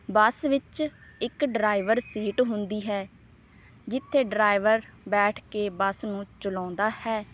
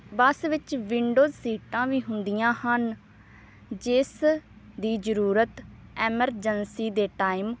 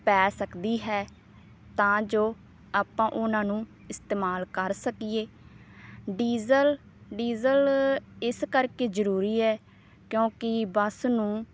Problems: none marked